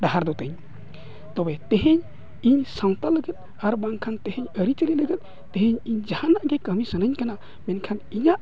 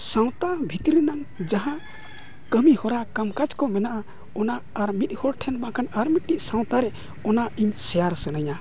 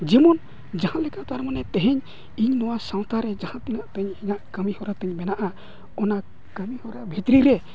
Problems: none marked